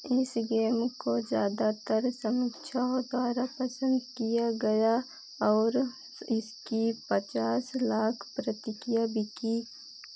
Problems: constant background noise